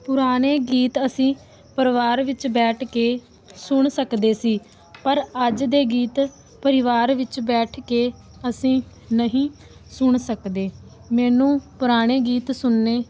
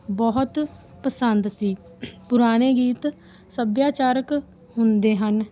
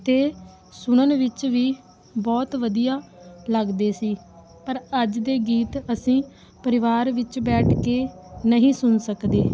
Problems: background sounds at intervals